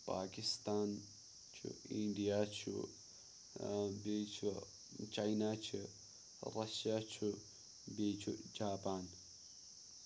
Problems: background sounds at intervals, low volume